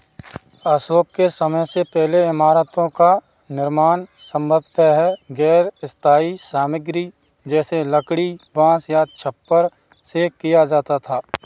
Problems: background sounds at intervals